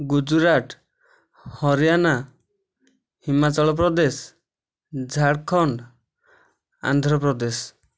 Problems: none marked